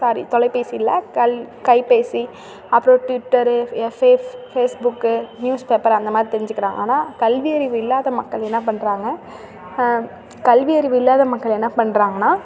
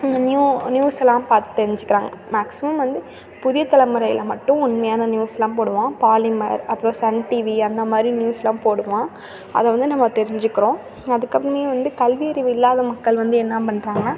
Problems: constant background noise